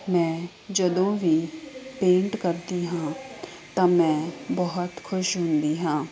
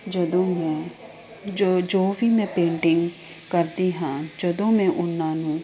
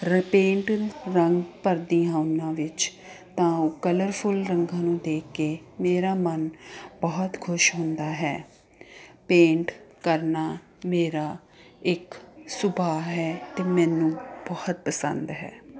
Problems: constant background noise